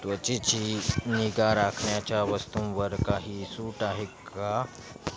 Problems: constant background noise, continuous background conversations